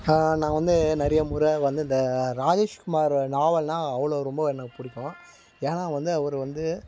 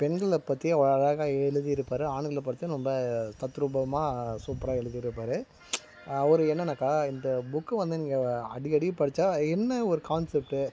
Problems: background sounds at intervals